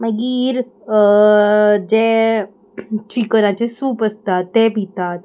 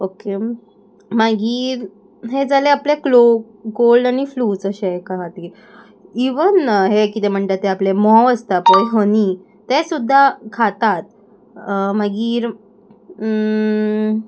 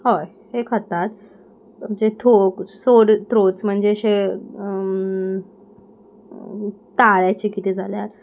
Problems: none marked